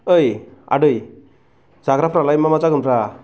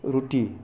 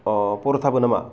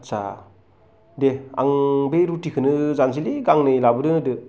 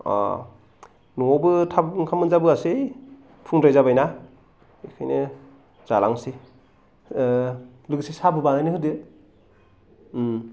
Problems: none marked